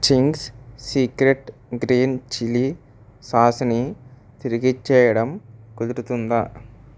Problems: none marked